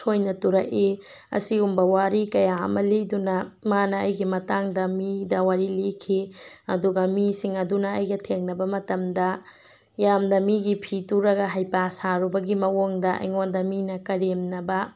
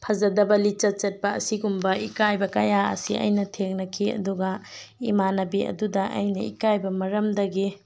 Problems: background sounds at intervals